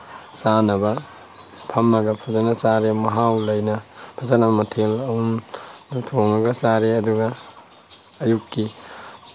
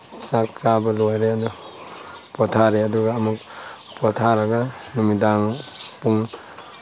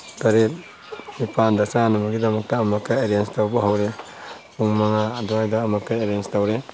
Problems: constant background noise